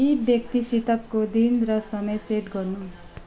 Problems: low volume